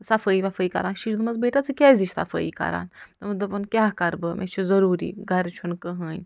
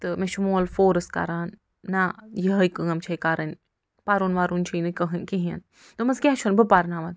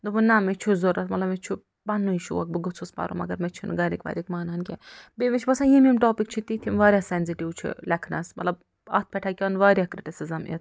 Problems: none marked